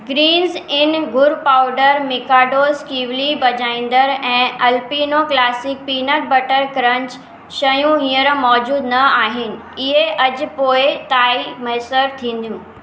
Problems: echo